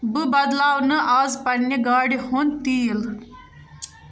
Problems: background conversations at intervals